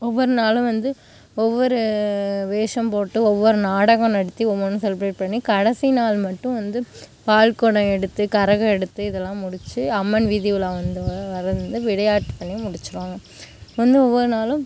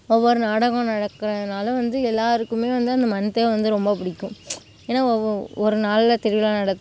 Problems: background sounds at intervals